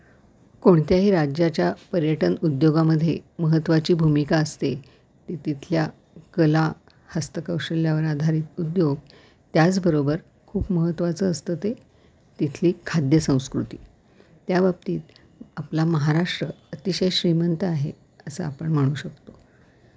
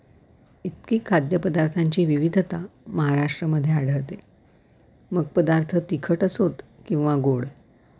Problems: background sounds at intervals